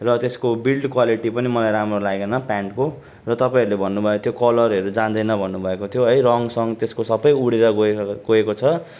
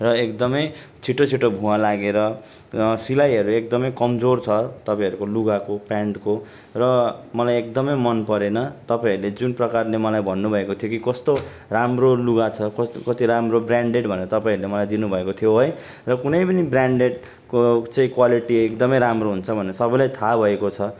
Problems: none marked